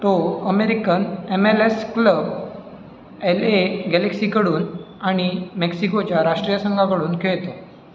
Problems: none marked